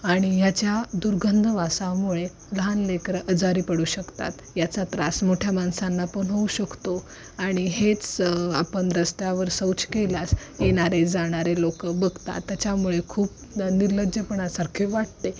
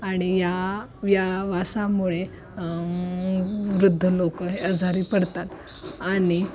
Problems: constant background noise